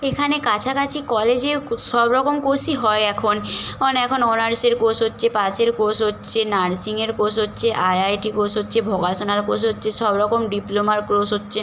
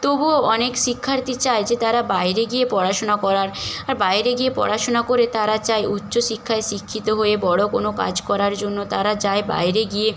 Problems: constant background noise